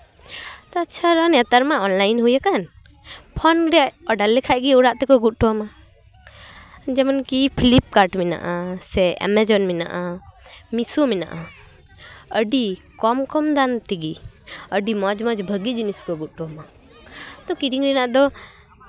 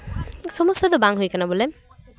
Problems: background sounds at intervals